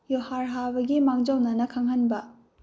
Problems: low volume